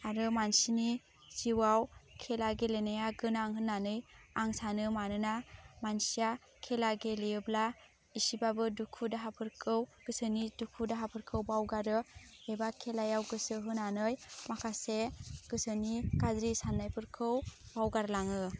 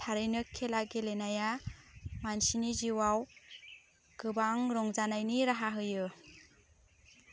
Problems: constant background noise